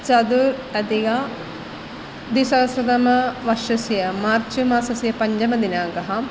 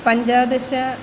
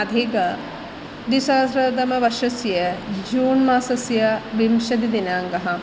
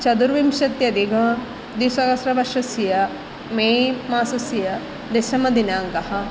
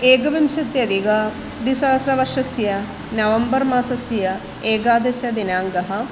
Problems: background sounds at intervals